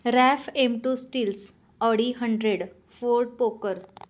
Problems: constant background noise, background conversations at intervals